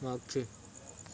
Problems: constant background noise